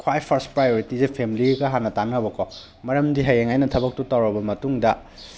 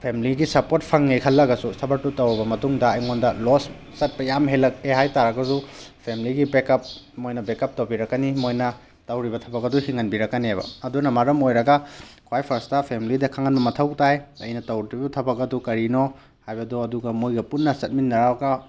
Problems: none marked